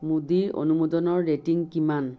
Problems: none marked